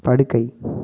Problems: none marked